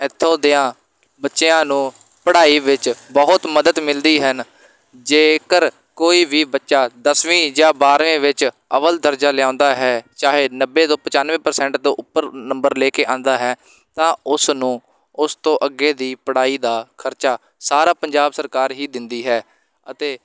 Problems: background sounds at intervals